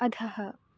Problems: none marked